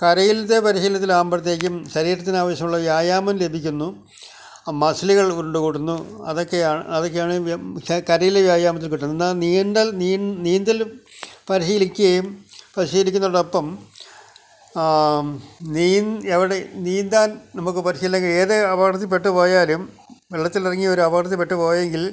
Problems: none marked